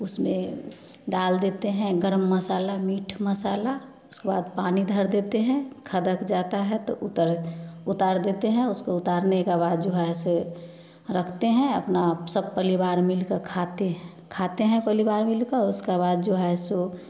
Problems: background conversations at intervals